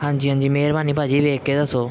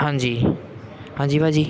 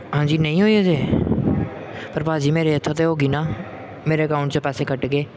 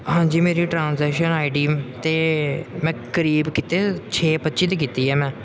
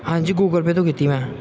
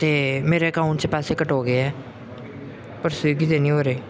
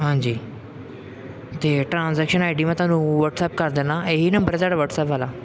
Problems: constant background noise